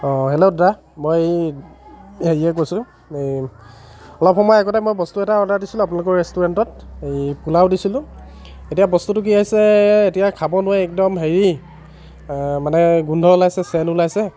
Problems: continuous background conversations